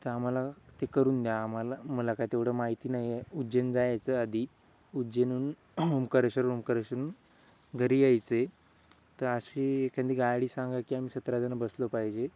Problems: none marked